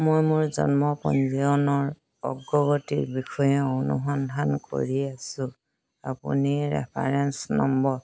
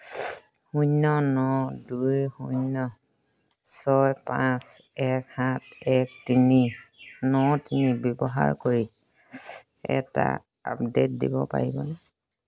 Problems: background sounds at intervals